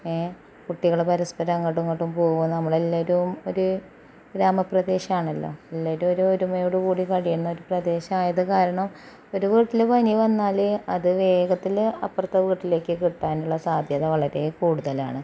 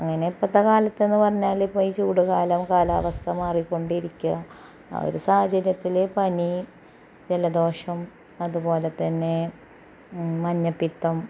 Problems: background sounds at intervals